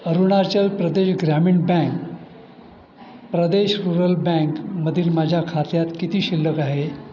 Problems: constant background noise, continuous background conversations